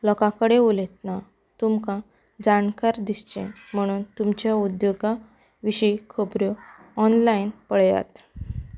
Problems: background sounds at intervals